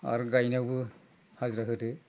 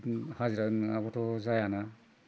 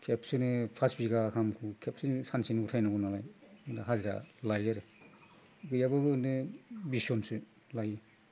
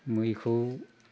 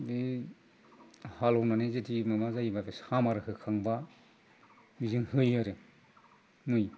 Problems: low volume